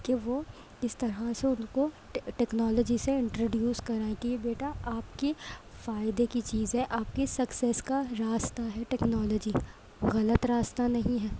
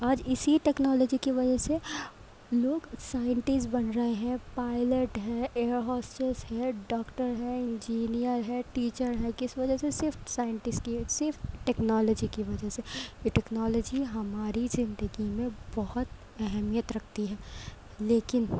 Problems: none marked